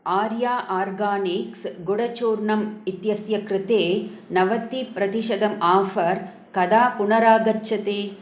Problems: none marked